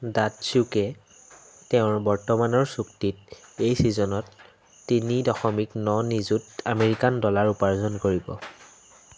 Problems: constant background noise